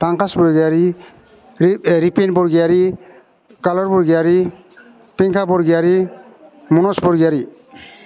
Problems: constant background noise